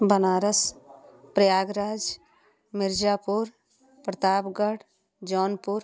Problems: none marked